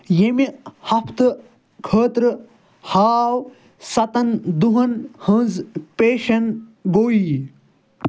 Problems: none marked